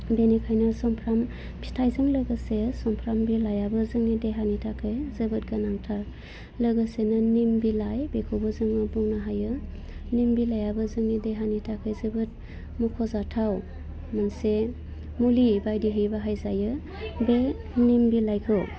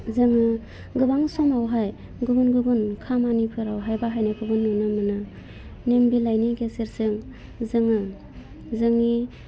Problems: low volume